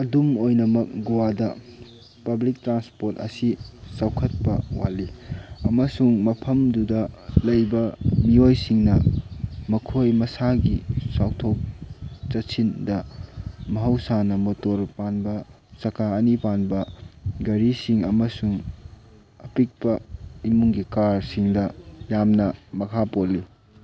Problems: constant background noise